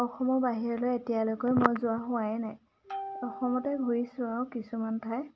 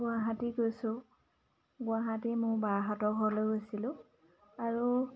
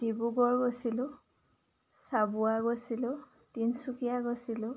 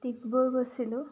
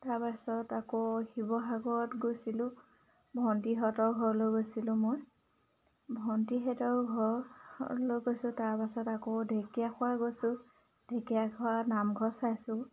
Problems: background sounds at intervals, background conversations at intervals